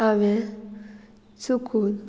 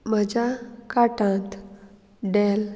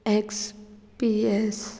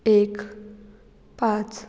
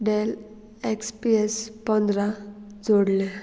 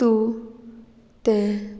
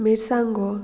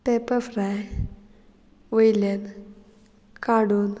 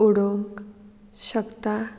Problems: background sounds at intervals